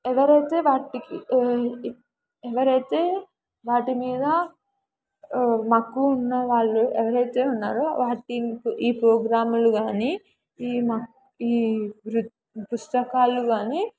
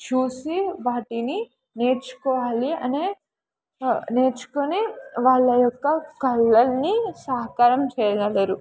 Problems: background conversations at intervals